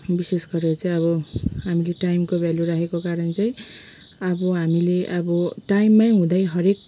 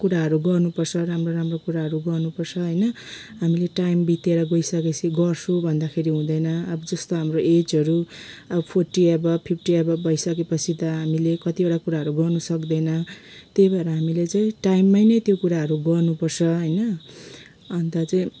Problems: background sounds at intervals